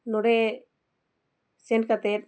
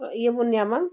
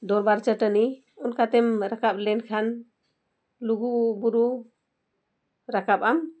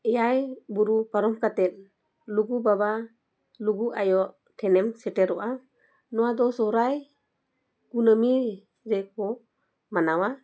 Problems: none marked